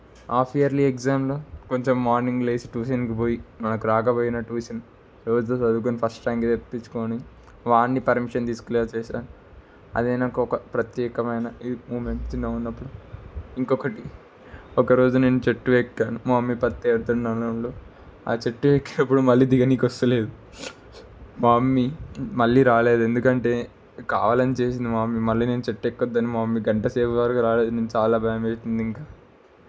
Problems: constant background noise